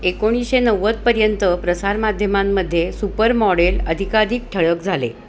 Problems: constant background noise